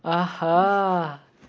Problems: none marked